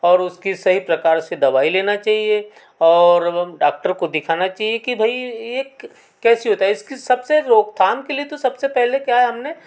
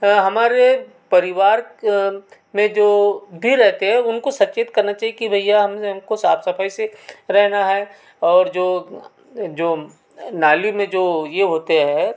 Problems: constant background noise